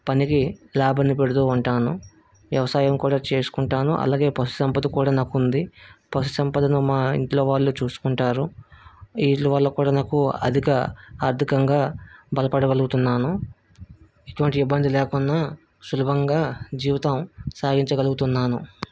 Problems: none marked